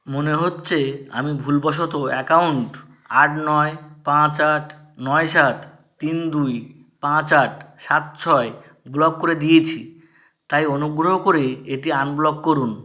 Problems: none marked